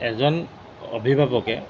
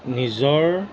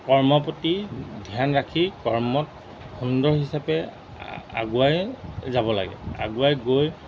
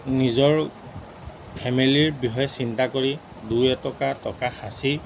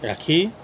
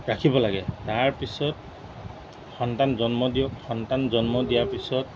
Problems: background sounds at intervals